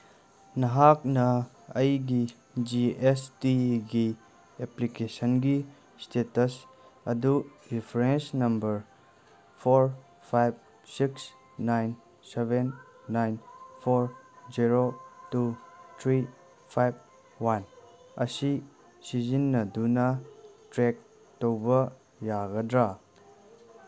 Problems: none marked